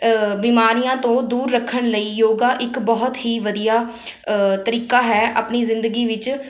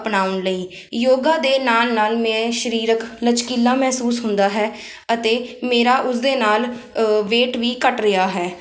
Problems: none marked